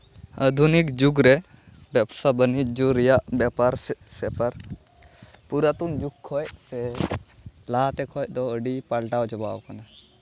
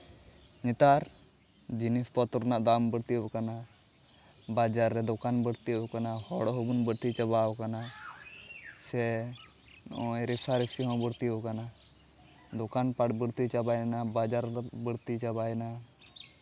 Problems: constant background noise, background conversations at intervals